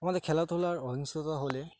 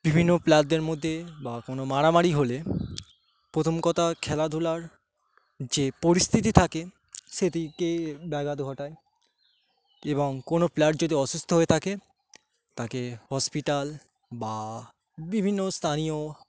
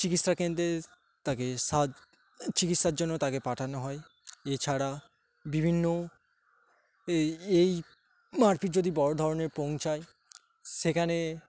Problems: constant background noise